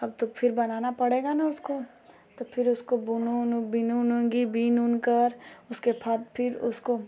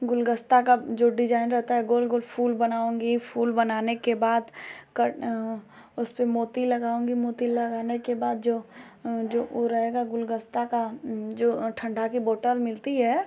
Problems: constant background noise